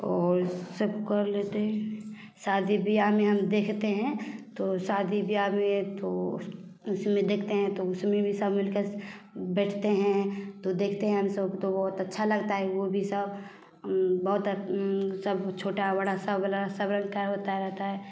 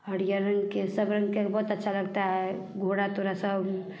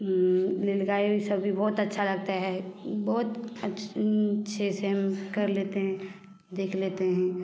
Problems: none marked